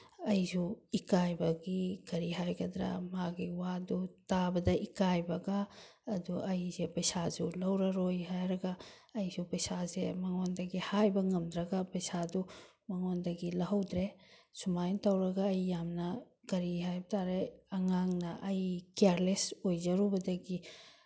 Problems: none marked